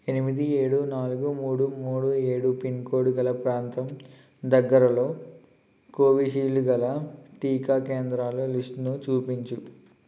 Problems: constant background noise